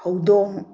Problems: none marked